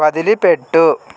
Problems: constant background noise